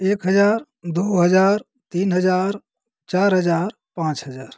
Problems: constant background noise